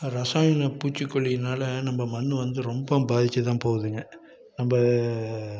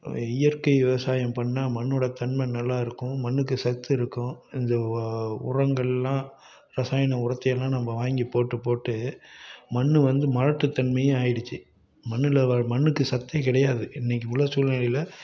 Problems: background conversations at intervals